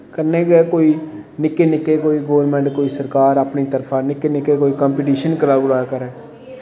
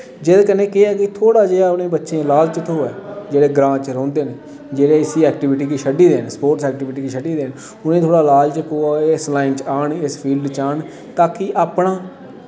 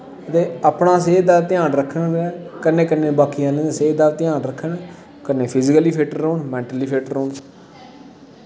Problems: constant background noise, background conversations at intervals, echo